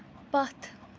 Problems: none marked